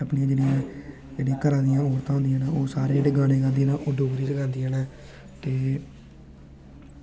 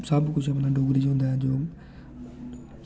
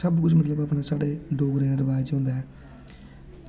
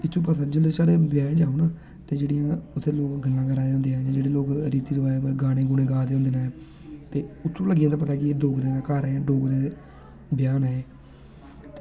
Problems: constant background noise